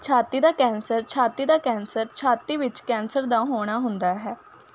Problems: constant background noise